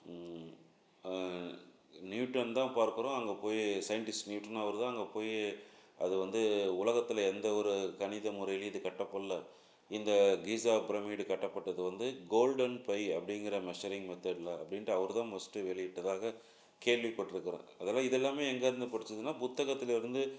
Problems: none marked